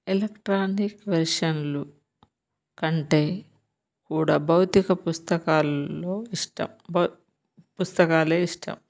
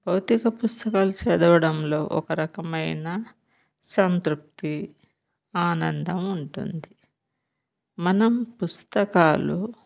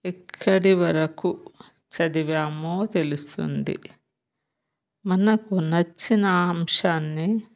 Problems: none marked